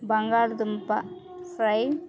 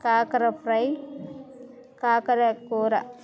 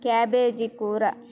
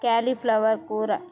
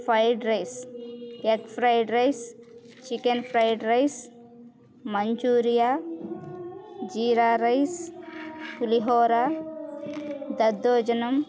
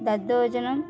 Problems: constant background noise